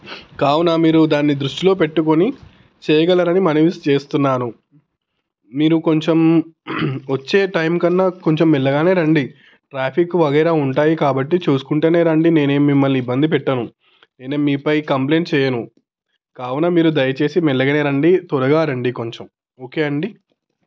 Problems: background sounds at intervals